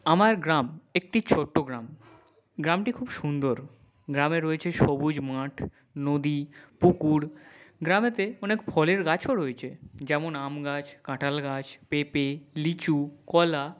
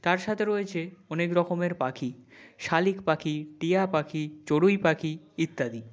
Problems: none marked